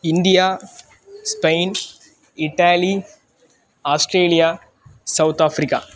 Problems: constant background noise